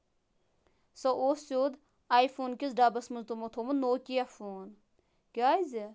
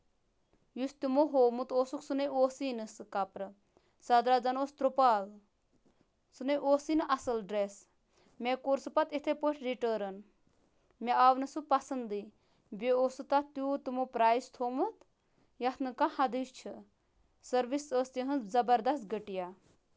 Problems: constant background noise